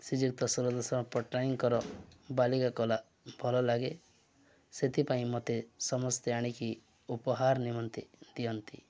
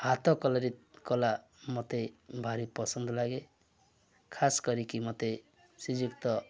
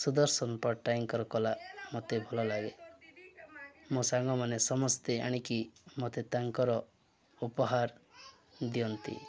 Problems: none marked